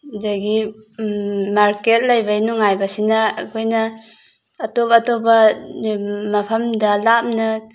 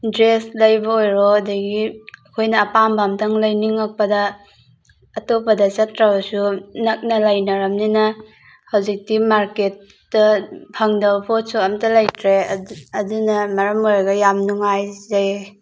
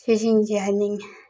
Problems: background sounds at intervals